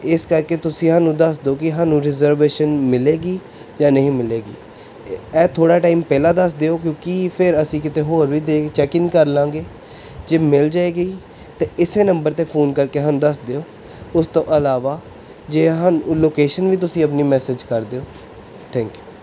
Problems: none marked